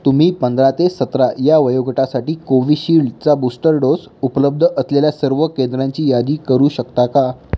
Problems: background sounds at intervals